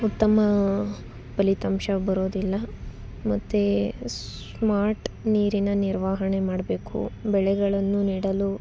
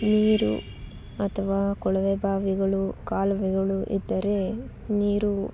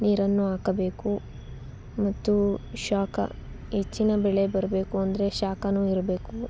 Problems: none marked